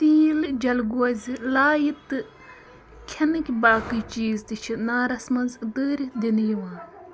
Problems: constant background noise